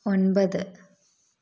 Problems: none marked